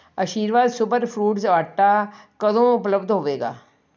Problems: none marked